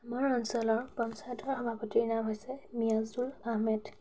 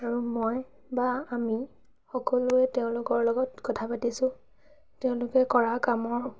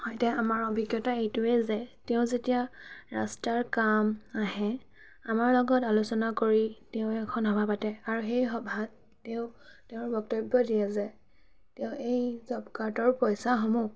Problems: constant background noise, background conversations at intervals